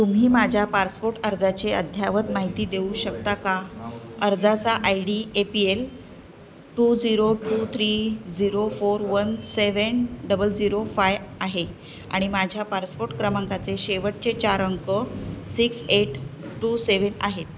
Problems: constant background noise, background conversations at intervals